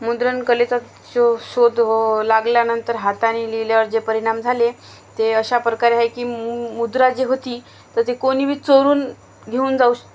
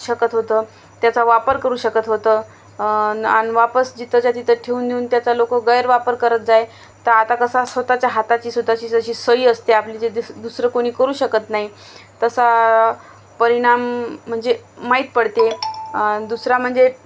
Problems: none marked